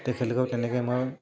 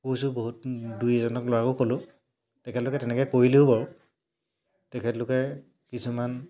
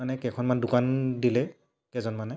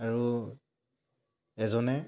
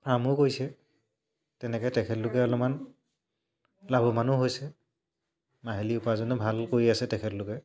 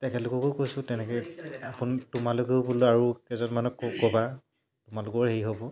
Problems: low volume